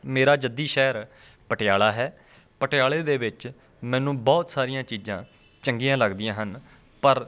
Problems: none marked